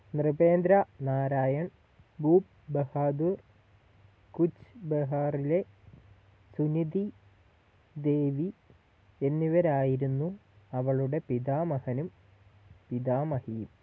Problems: low volume